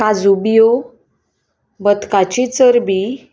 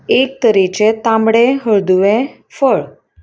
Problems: background sounds at intervals